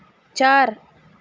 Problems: constant background noise